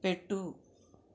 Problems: none marked